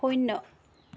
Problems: background sounds at intervals